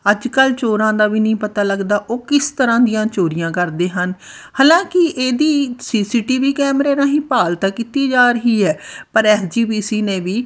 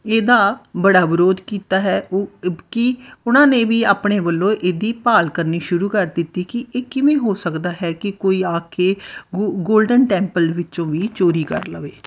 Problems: background sounds at intervals